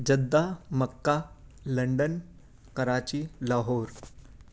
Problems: none marked